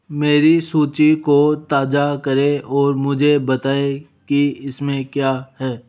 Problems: none marked